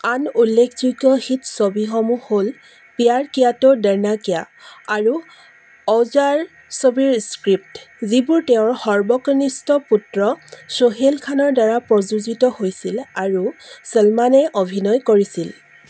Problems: constant background noise